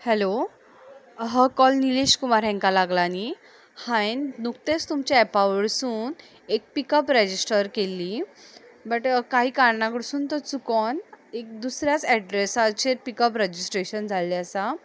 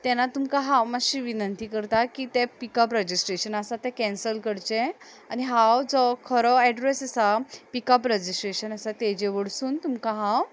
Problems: background sounds at intervals